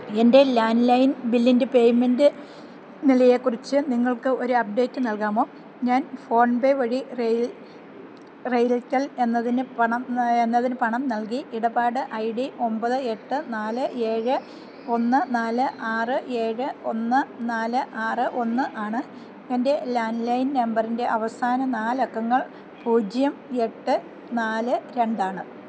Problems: none marked